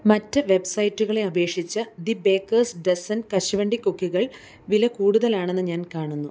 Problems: constant background noise